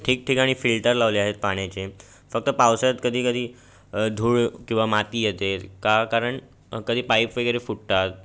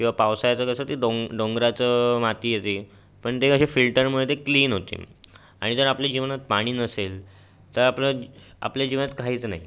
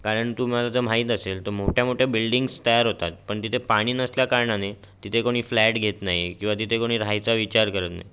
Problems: constant background noise, background conversations at intervals